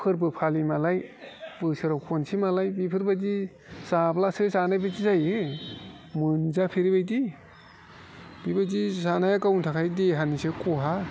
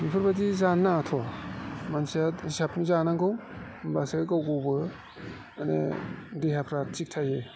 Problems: constant background noise